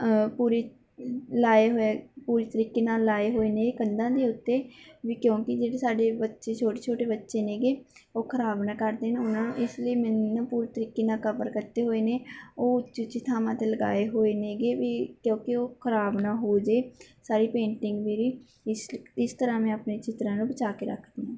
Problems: background sounds at intervals